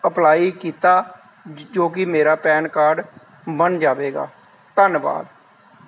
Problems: none marked